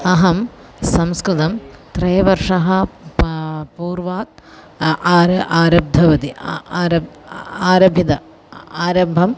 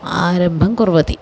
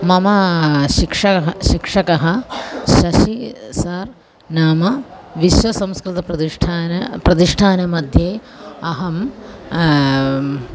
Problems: none marked